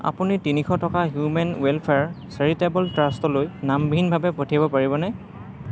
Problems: background conversations at intervals